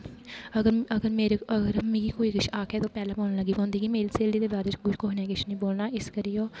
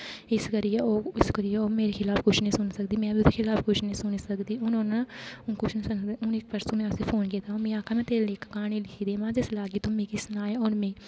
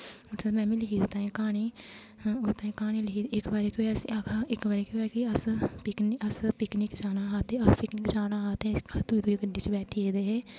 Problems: constant background noise